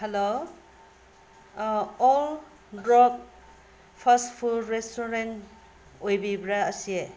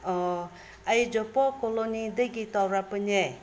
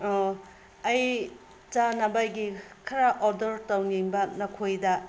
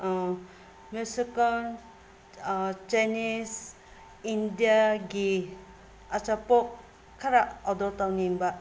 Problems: background sounds at intervals